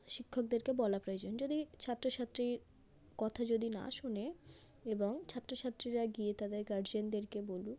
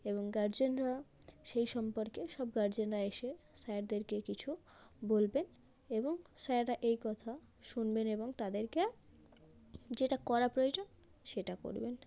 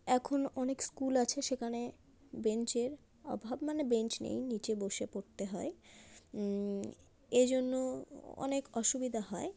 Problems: constant background noise